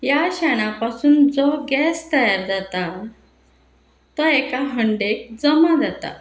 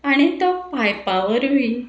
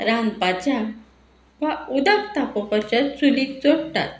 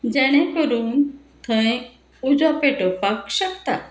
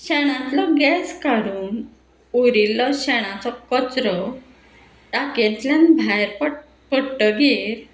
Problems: constant background noise